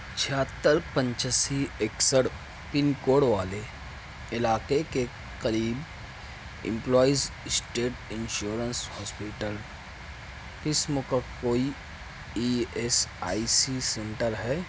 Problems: none marked